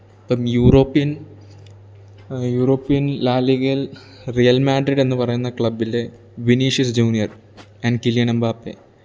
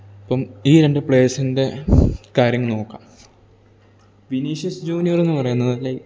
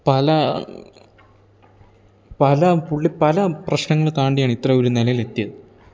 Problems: none marked